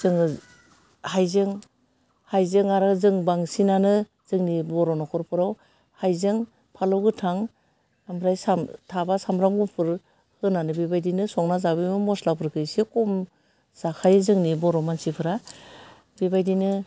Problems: none marked